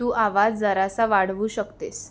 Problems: constant background noise